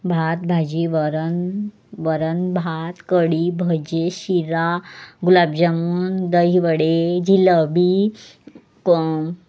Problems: background sounds at intervals